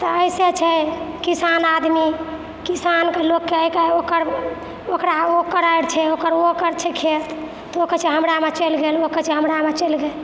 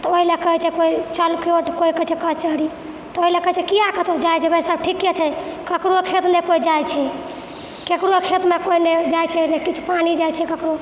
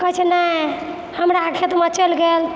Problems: none marked